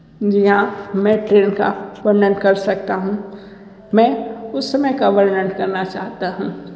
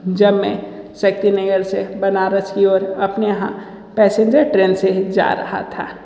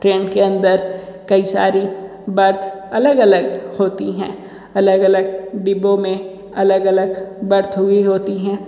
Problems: constant background noise, echo